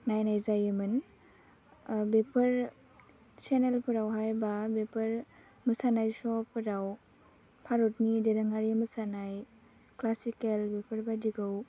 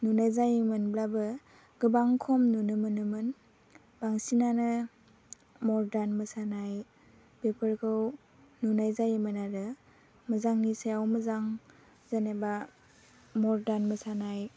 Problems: low volume